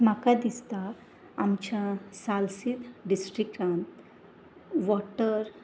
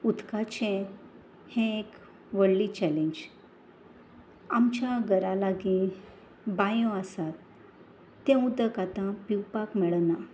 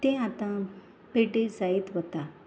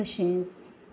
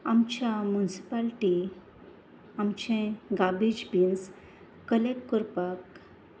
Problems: constant background noise